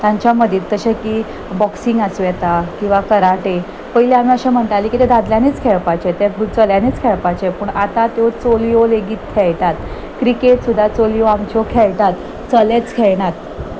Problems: background sounds at intervals